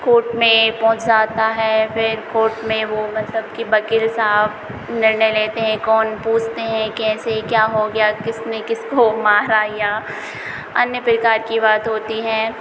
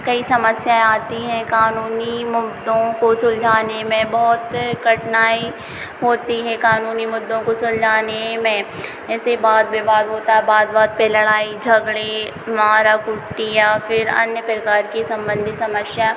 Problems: constant background noise